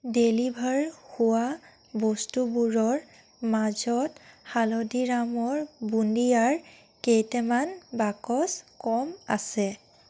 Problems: constant background noise